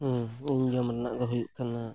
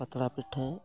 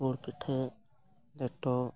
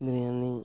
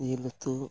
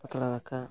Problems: background sounds at intervals